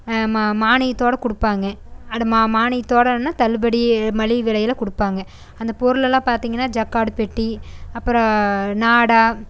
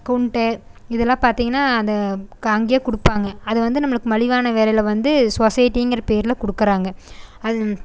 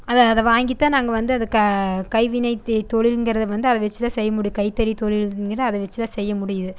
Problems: none marked